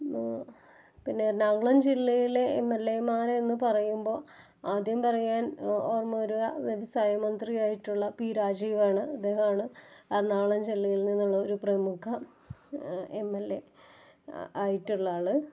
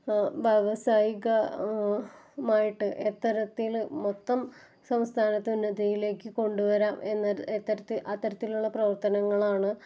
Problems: none marked